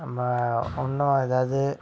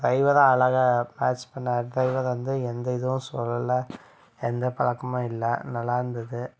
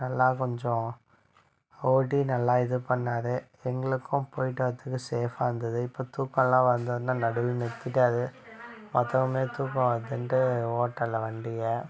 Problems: background conversations at intervals